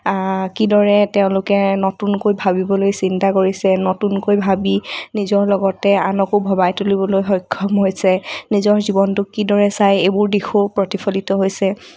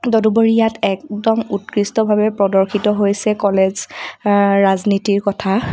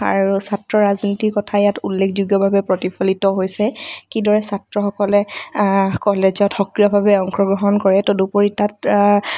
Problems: none marked